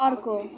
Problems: constant background noise